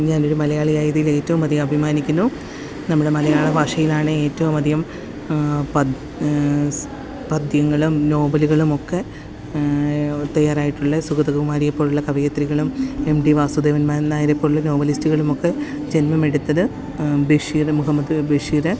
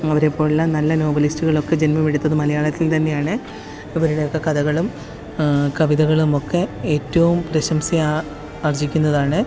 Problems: constant background noise